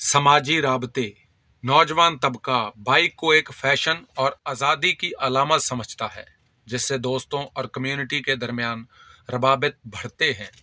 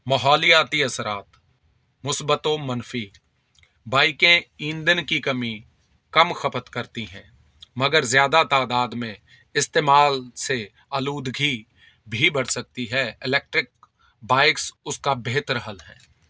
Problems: none marked